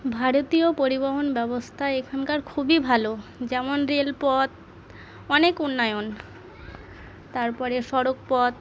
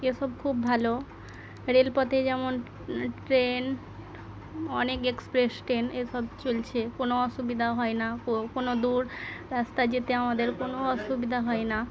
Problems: none marked